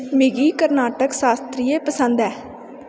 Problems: constant background noise, echo